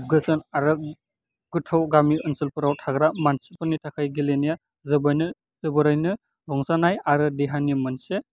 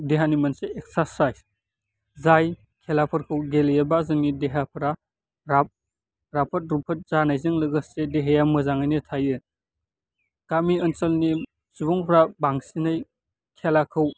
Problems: constant background noise